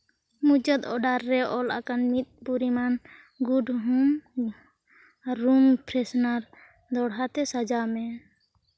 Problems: none marked